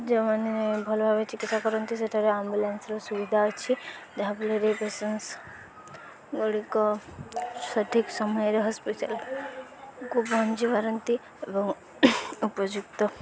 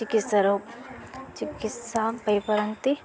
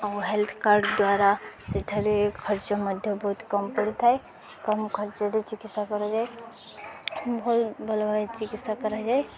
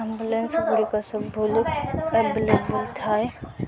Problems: constant background noise, continuous background conversations